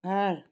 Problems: none marked